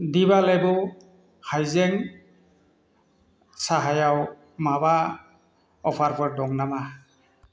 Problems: constant background noise